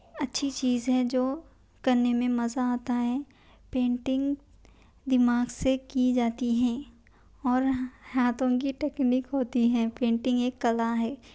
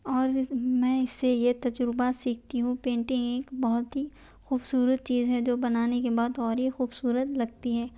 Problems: none marked